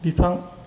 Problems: none marked